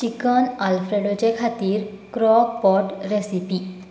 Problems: constant background noise